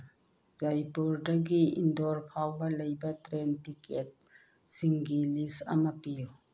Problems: low volume